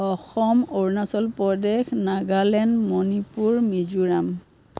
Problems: none marked